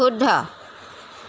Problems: none marked